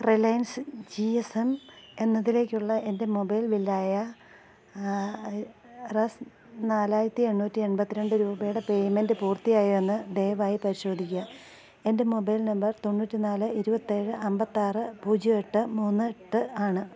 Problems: low volume